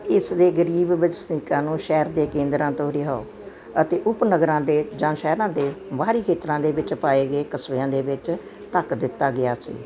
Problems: constant background noise